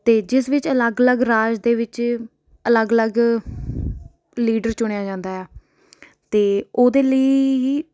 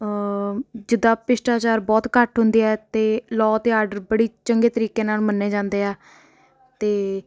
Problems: background conversations at intervals